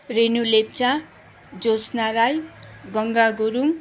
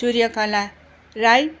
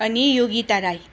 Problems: none marked